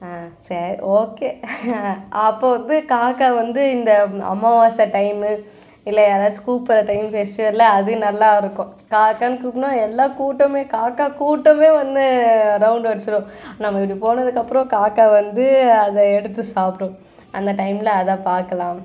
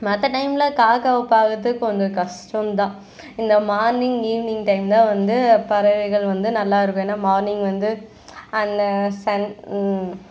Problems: constant background noise, background conversations at intervals